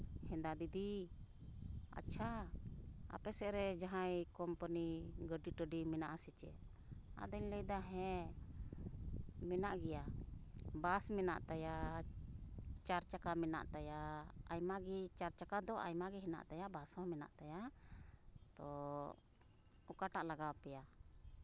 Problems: constant background noise, background conversations at intervals